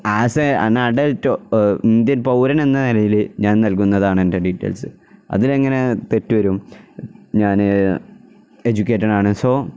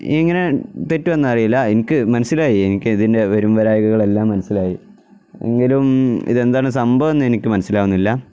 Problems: none marked